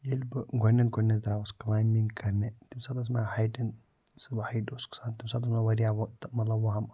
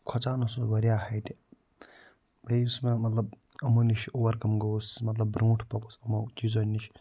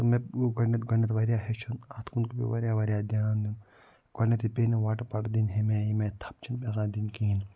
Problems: none marked